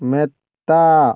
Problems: none marked